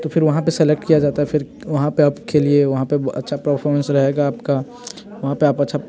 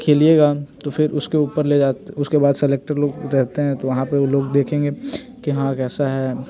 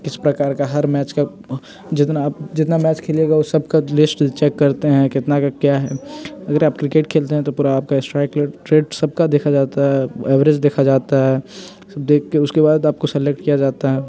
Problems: constant background noise, continuous background conversations